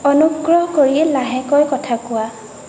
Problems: constant background noise, continuous background conversations